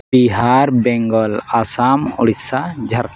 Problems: none marked